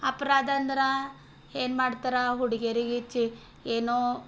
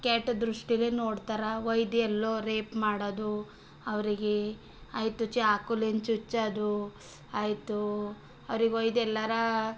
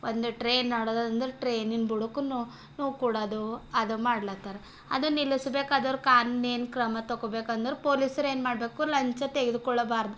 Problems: none marked